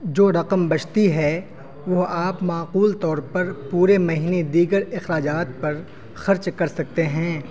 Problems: constant background noise